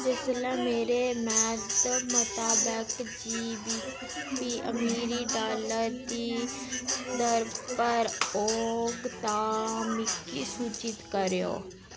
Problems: constant background noise